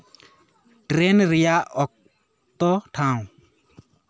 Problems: background sounds at intervals